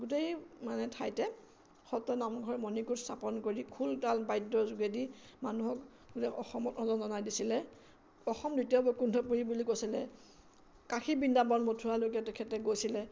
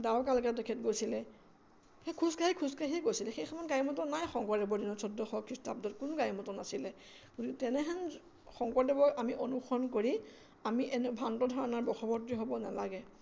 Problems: constant background noise